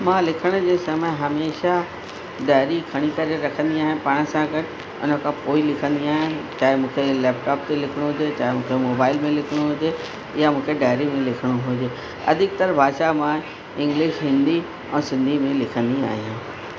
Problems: constant background noise, echo